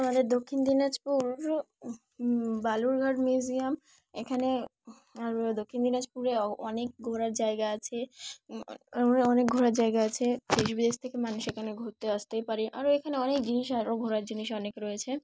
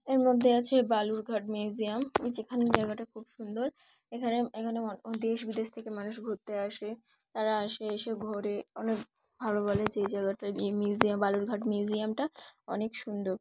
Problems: background sounds at intervals